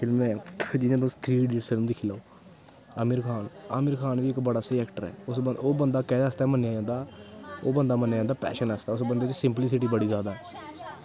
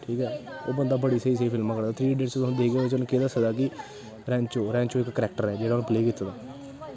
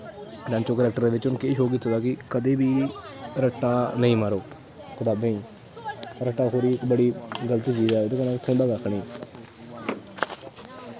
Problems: constant background noise